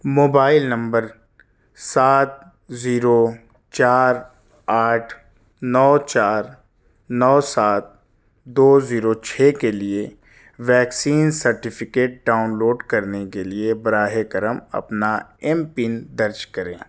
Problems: none marked